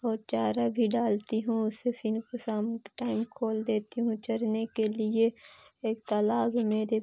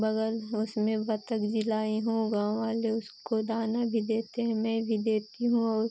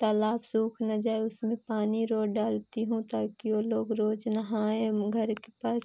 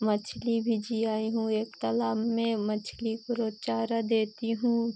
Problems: constant background noise